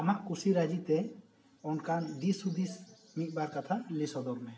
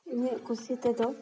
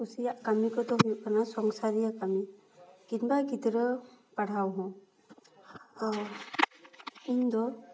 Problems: background sounds at intervals, continuous background conversations, echo